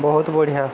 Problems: constant background noise